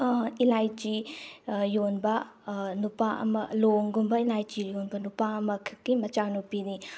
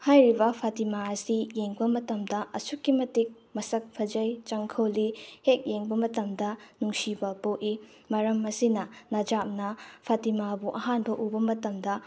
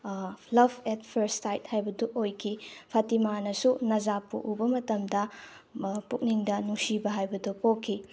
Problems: background sounds at intervals